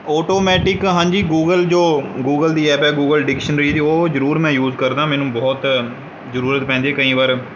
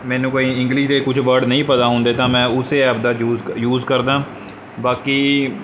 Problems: none marked